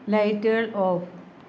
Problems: none marked